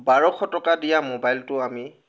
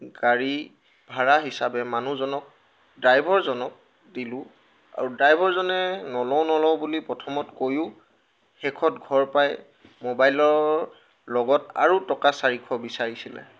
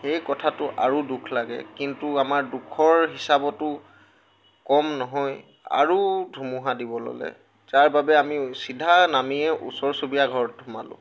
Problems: none marked